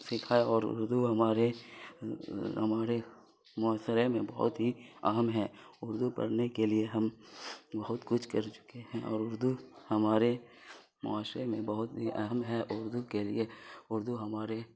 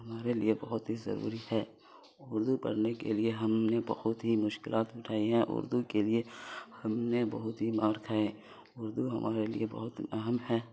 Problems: constant background noise